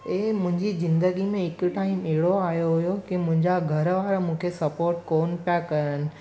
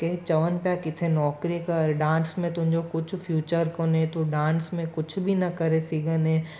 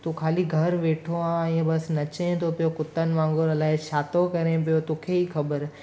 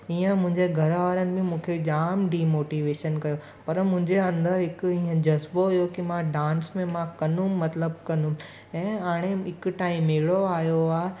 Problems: constant background noise